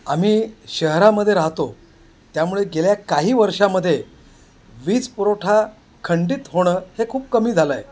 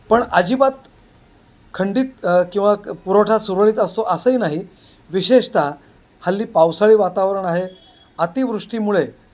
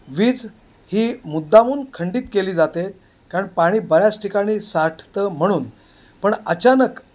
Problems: constant background noise, background conversations at intervals